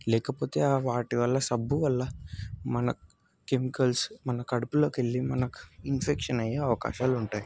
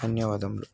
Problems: constant background noise, background conversations at intervals